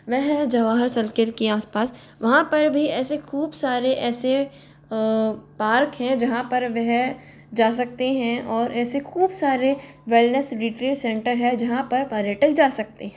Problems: constant background noise